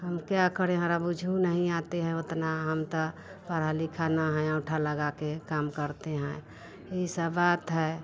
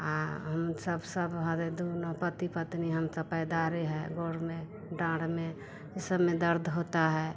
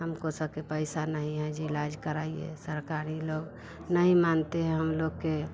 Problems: none marked